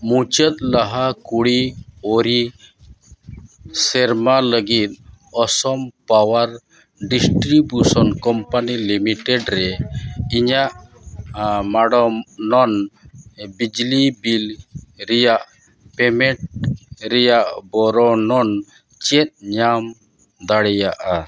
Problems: background sounds at intervals